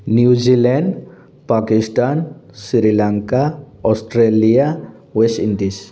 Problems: background sounds at intervals